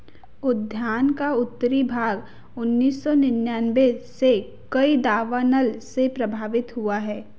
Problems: none marked